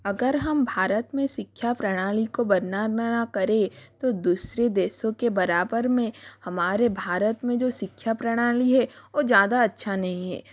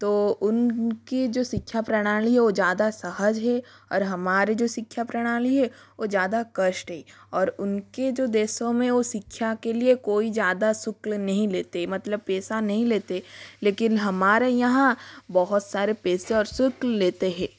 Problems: constant background noise